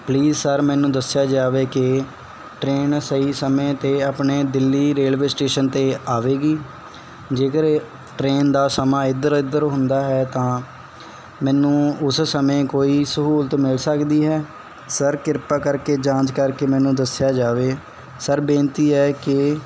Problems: background sounds at intervals